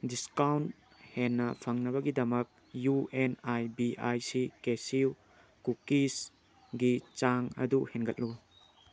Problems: constant background noise